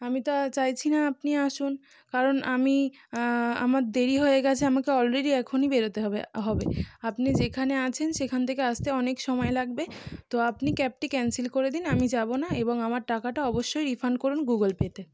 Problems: none marked